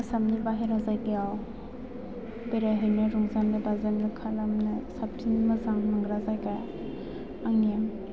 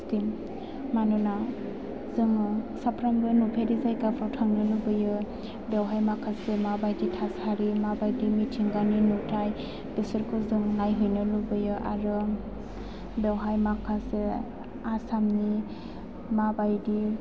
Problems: background sounds at intervals